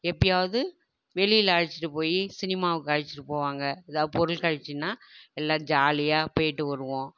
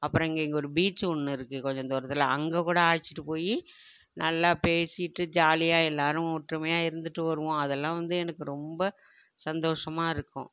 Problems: none marked